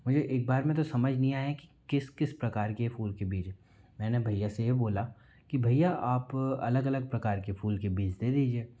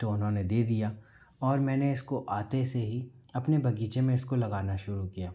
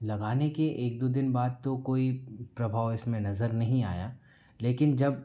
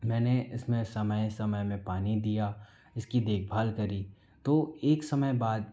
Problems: background sounds at intervals